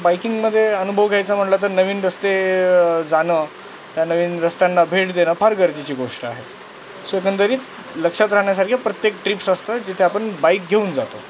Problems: constant background noise